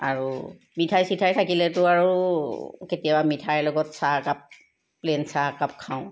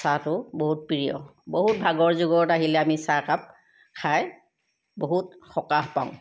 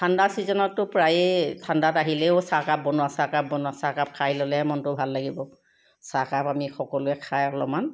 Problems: none marked